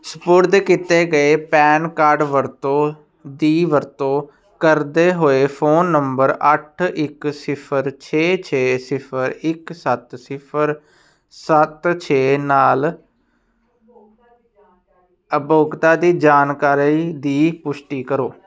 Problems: none marked